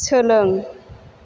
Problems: constant background noise